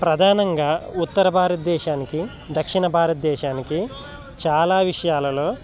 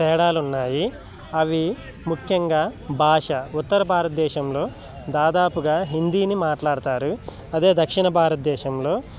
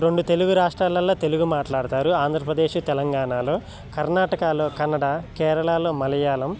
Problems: background conversations at intervals